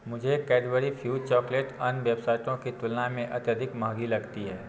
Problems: low volume